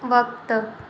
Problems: constant background noise, echo